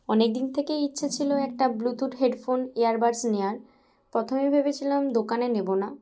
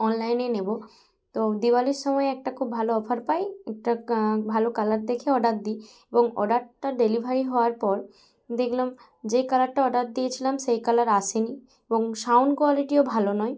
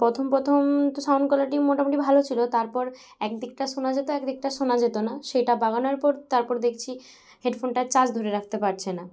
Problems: background sounds at intervals, background conversations at intervals